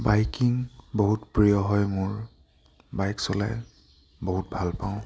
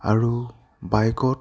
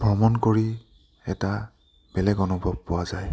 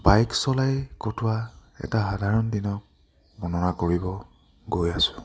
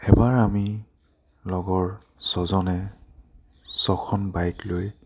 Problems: none marked